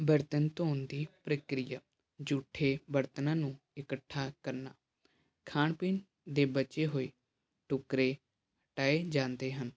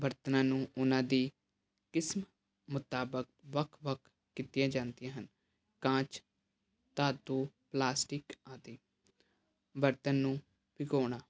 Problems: none marked